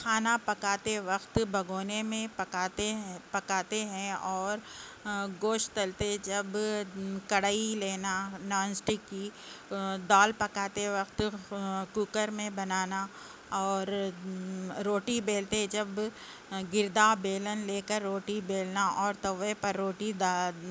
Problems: constant background noise